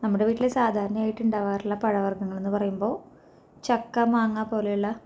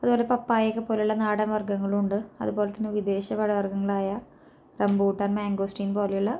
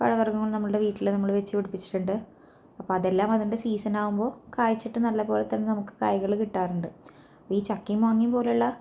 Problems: low volume